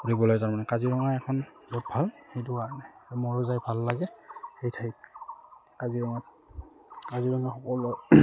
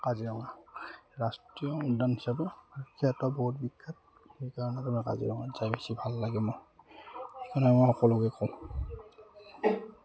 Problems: none marked